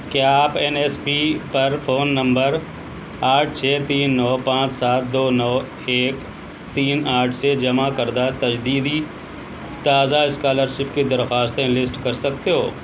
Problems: constant background noise